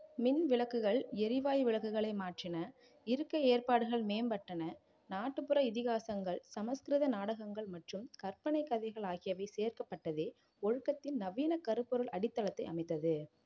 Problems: none marked